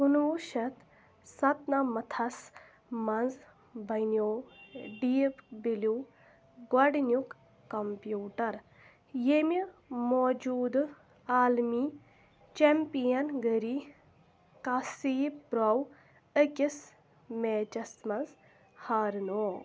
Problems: background sounds at intervals